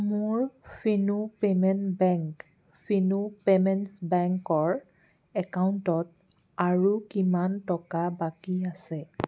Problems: background sounds at intervals